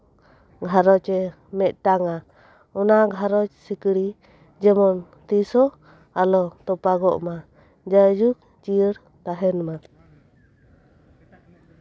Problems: none marked